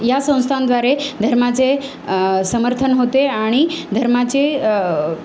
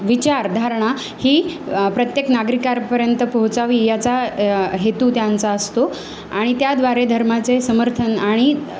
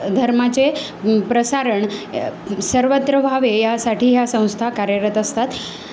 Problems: constant background noise